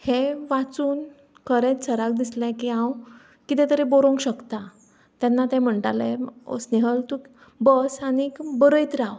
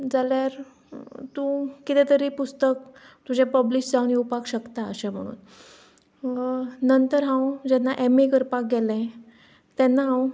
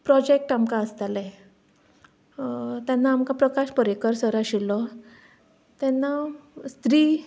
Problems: background sounds at intervals